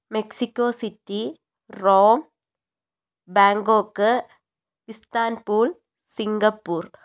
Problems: none marked